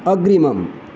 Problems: constant background noise